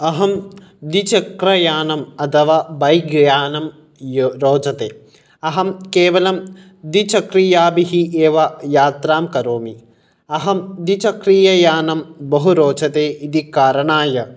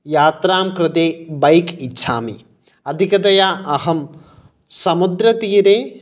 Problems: none marked